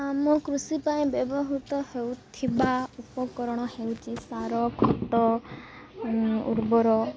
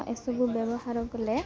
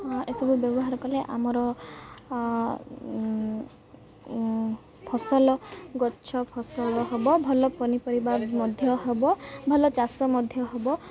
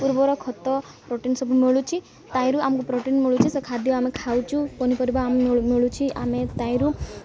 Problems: constant background noise, continuous background conversations